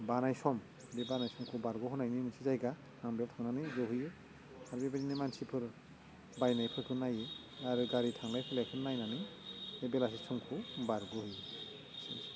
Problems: constant background noise